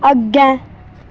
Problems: constant background noise